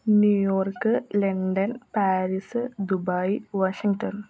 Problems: low volume